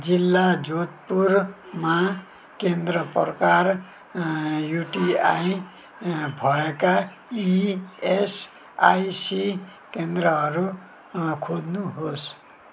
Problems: background sounds at intervals